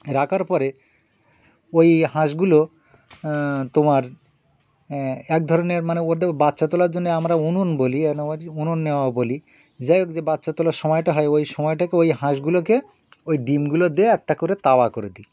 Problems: background sounds at intervals, background conversations at intervals